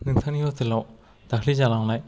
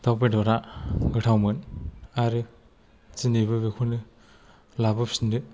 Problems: low volume